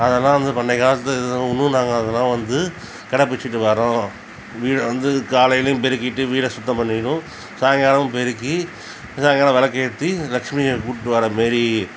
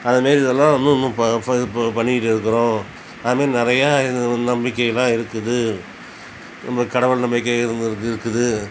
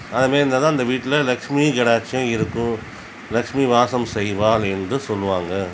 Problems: constant background noise